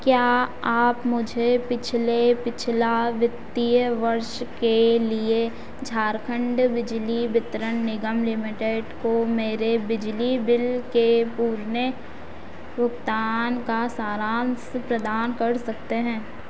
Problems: none marked